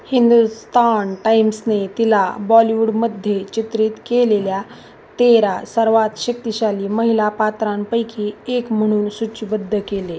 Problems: none marked